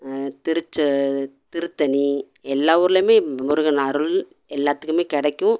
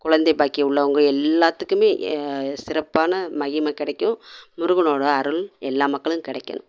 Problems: none marked